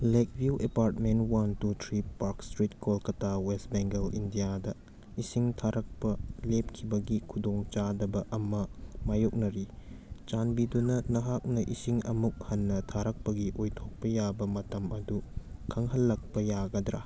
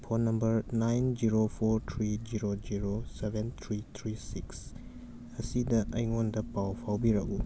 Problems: background sounds at intervals